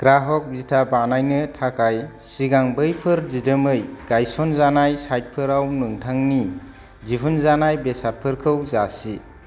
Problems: background sounds at intervals